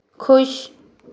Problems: constant background noise